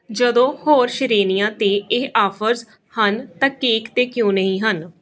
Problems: background conversations at intervals